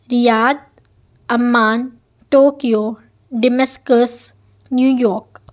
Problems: background sounds at intervals